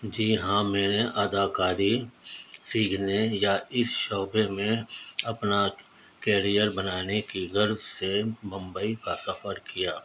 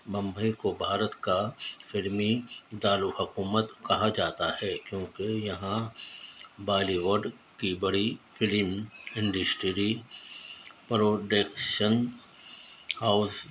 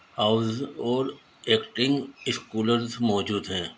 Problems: constant background noise, low volume